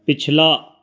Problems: background conversations at intervals